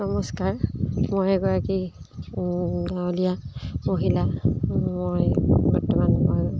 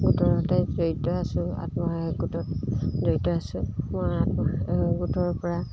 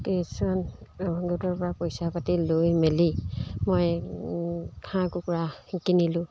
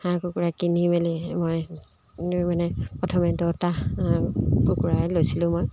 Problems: none marked